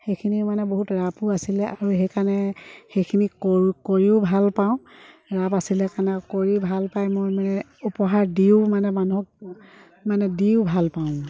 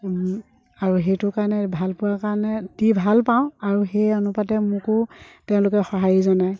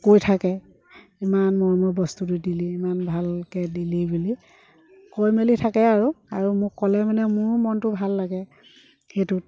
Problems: background sounds at intervals